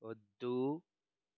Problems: low volume